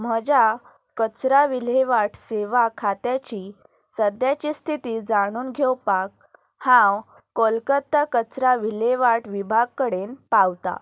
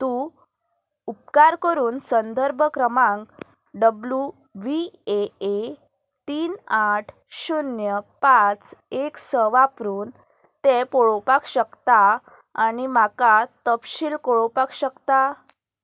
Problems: none marked